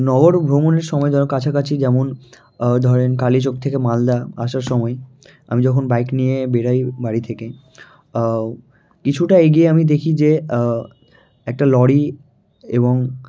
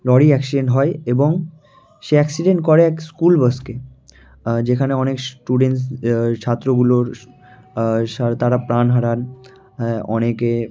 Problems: constant background noise, continuous background conversations